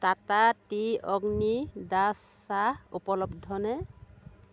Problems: none marked